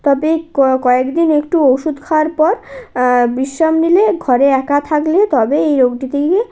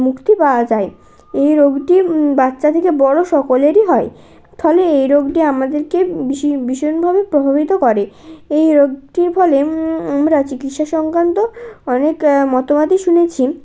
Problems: none marked